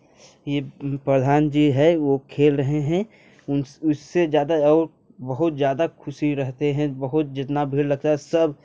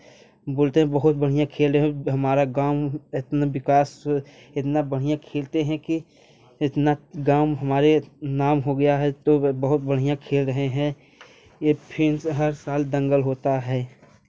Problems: constant background noise